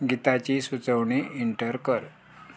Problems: low volume